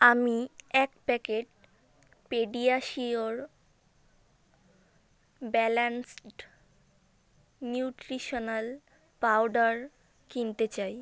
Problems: none marked